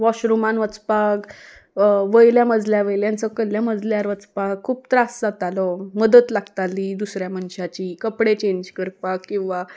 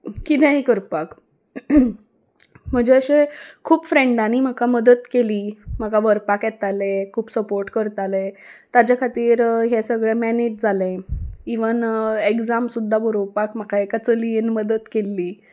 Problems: background sounds at intervals